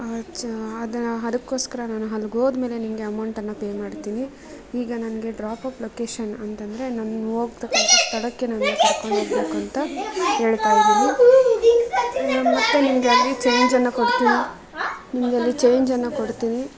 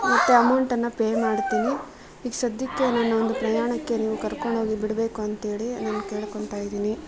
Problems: background conversations at intervals